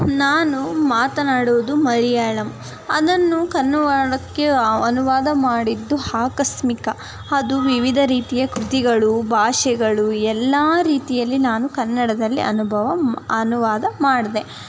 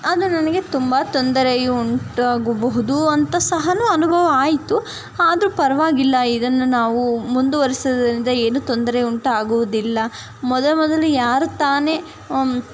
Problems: background sounds at intervals, background conversations at intervals